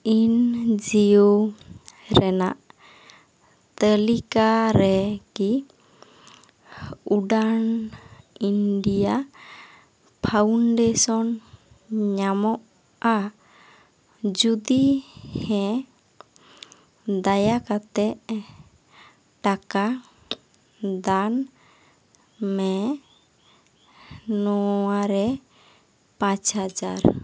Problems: none marked